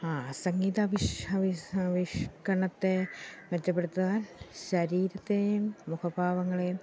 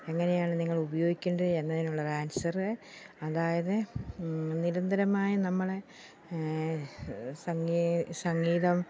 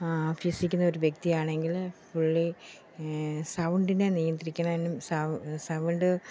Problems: none marked